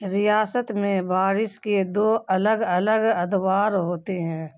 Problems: none marked